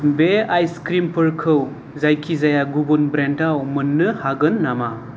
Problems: none marked